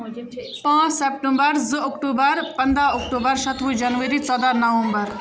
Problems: constant background noise, background conversations at intervals